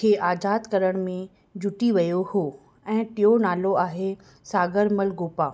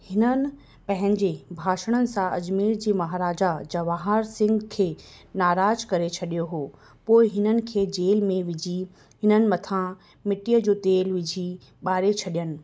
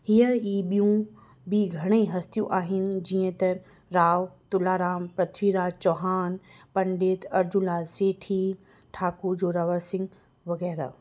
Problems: none marked